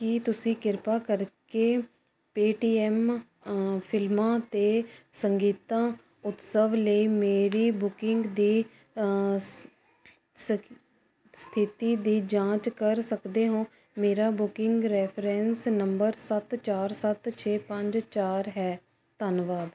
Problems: constant background noise